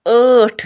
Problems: none marked